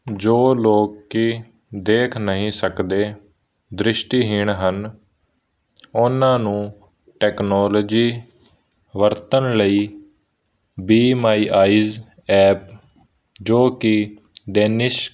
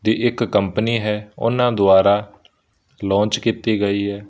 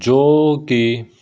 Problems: none marked